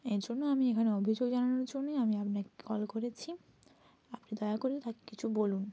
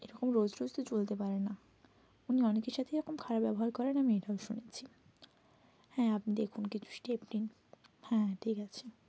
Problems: constant background noise